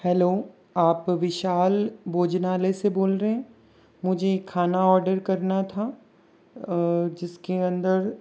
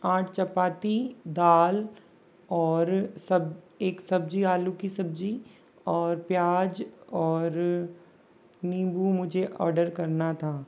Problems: low volume